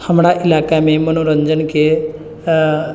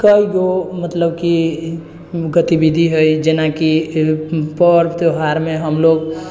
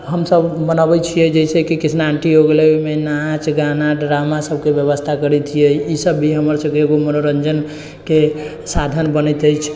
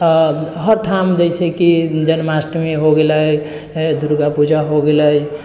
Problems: none marked